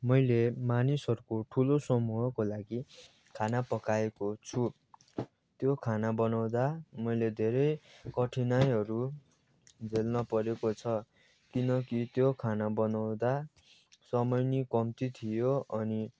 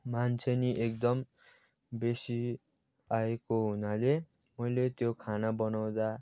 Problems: background sounds at intervals, background conversations at intervals